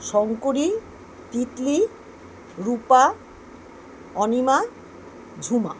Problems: none marked